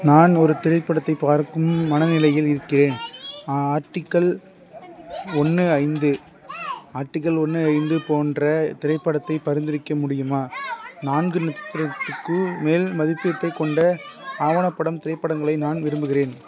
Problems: background conversations at intervals